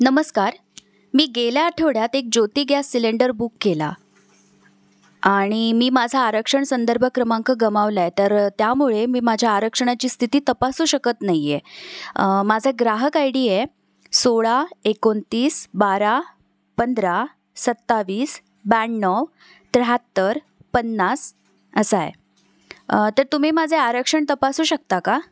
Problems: background sounds at intervals